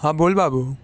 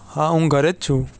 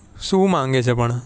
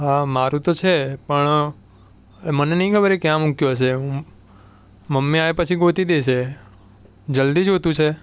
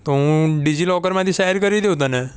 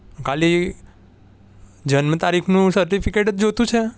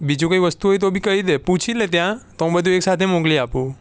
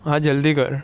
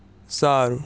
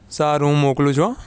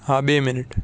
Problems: none marked